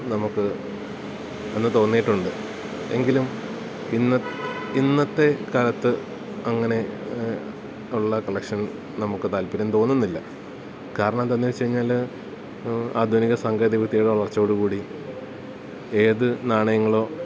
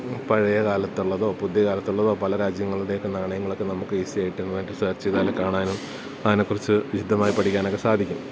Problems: none marked